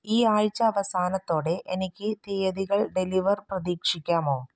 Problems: none marked